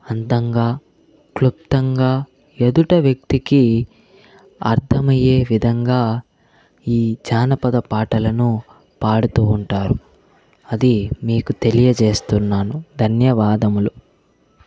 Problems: constant background noise, background conversations at intervals